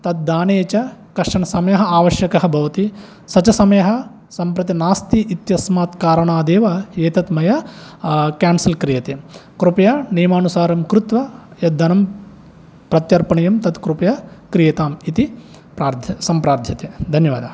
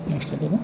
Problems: none marked